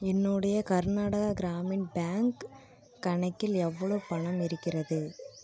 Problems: none marked